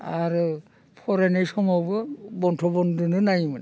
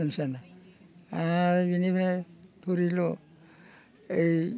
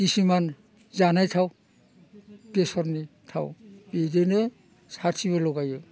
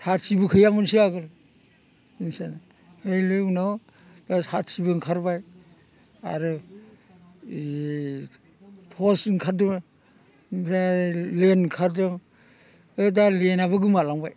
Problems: constant background noise